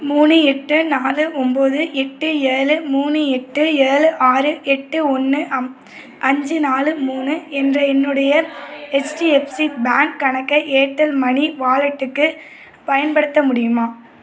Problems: none marked